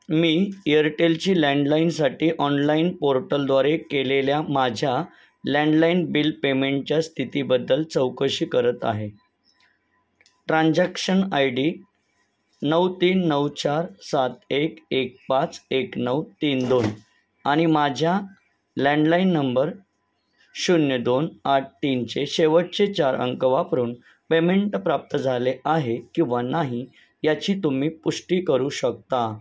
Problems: none marked